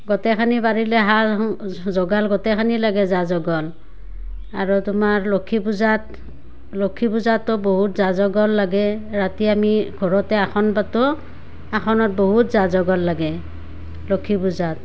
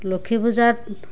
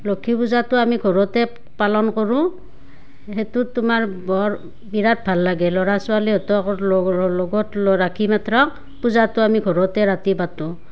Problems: none marked